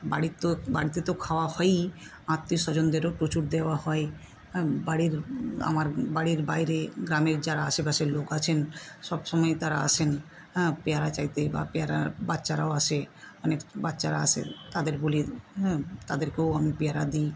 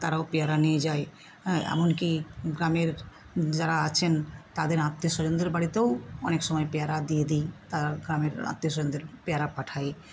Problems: constant background noise